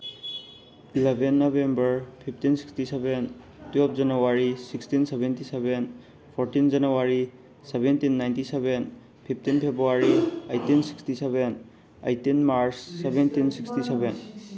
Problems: background sounds at intervals, background conversations at intervals